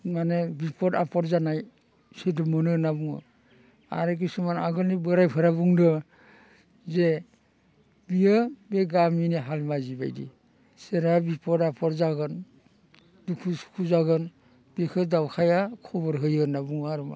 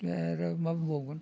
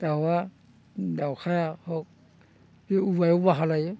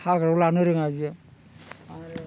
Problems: constant background noise